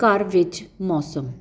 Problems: constant background noise